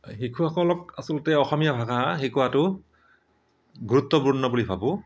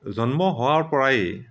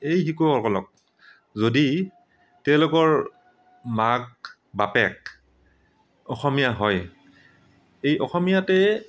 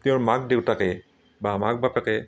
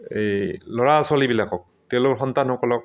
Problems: none marked